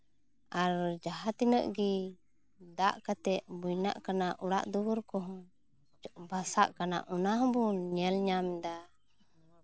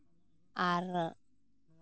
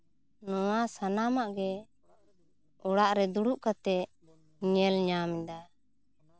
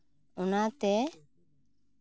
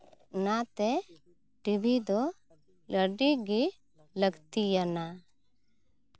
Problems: background sounds at intervals